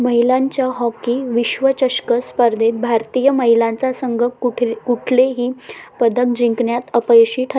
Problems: none marked